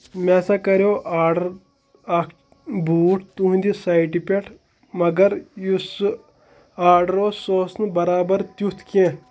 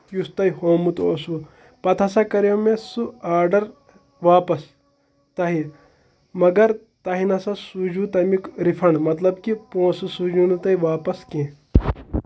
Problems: none marked